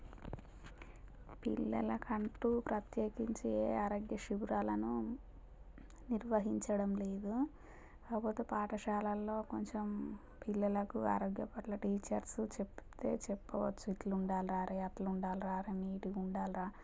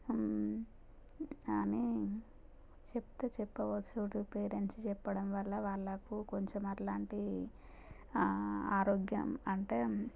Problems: low volume